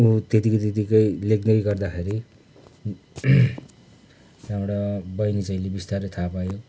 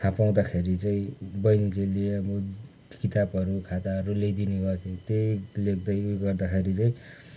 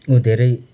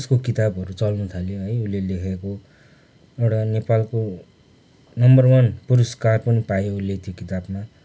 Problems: background sounds at intervals